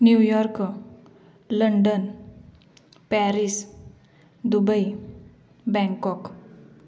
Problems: background sounds at intervals, background conversations at intervals